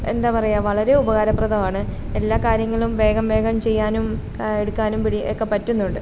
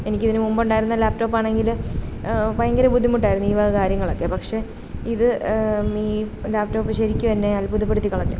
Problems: constant background noise